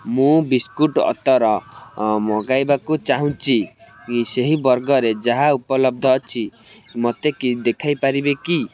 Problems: constant background noise